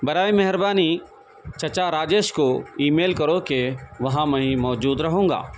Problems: none marked